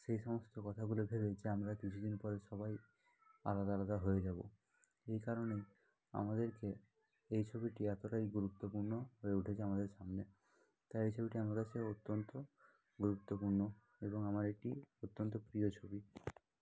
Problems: continuous background conversations